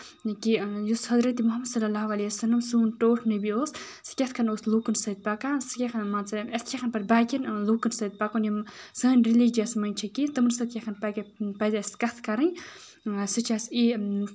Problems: background sounds at intervals